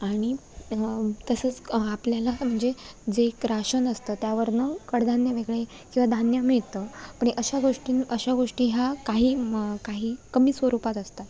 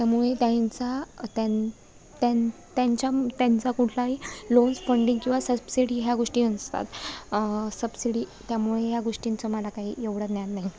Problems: none marked